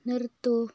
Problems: low volume